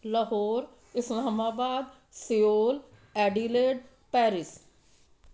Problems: none marked